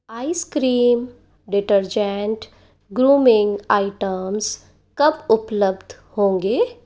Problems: none marked